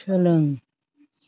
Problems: none marked